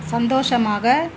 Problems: constant background noise